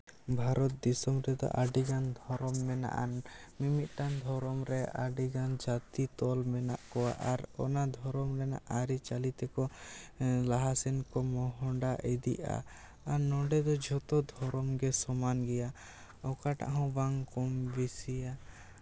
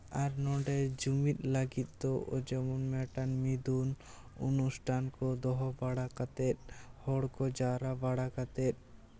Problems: constant background noise